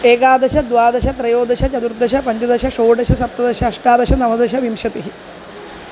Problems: constant background noise